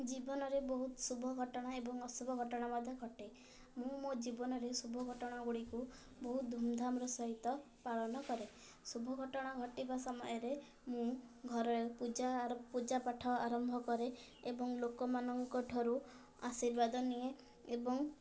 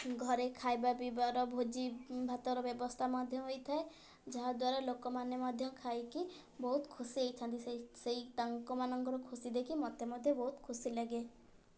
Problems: low volume